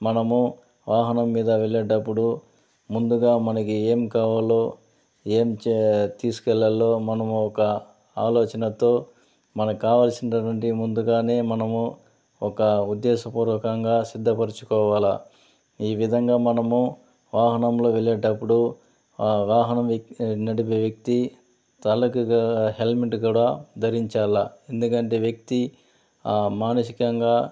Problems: none marked